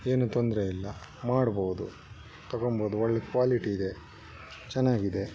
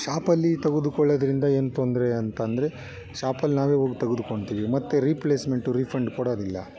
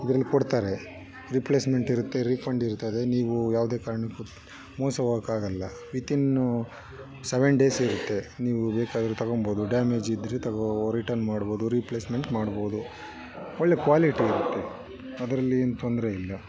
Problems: background sounds at intervals